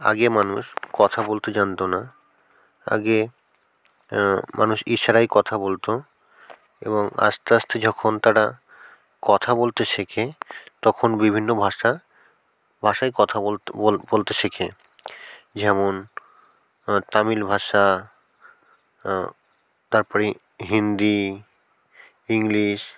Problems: background sounds at intervals